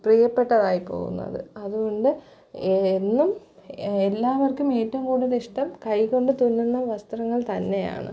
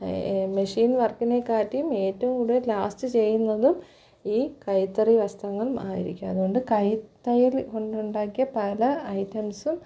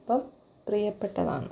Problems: low volume